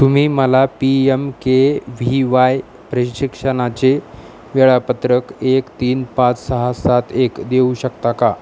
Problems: constant background noise